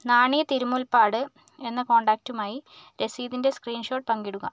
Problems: none marked